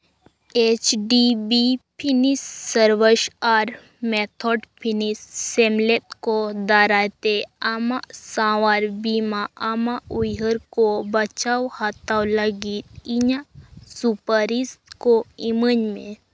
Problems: background sounds at intervals